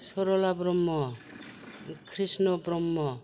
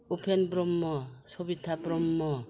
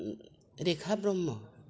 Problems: none marked